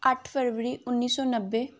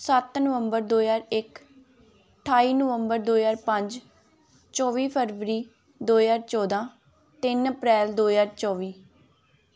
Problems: background conversations at intervals